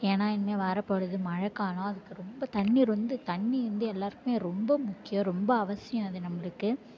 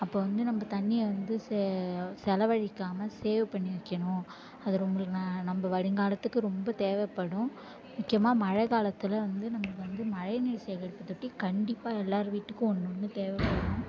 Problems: low volume